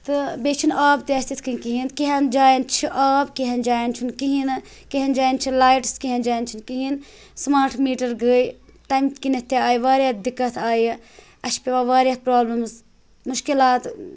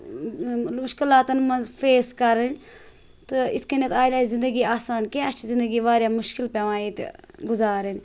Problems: none marked